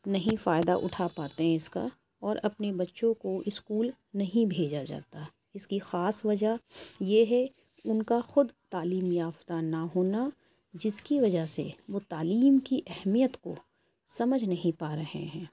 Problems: none marked